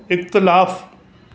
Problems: constant background noise